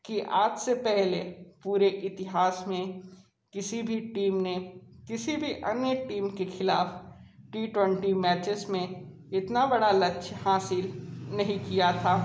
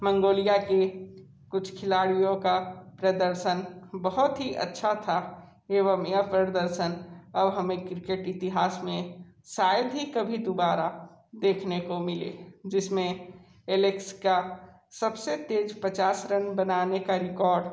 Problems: none marked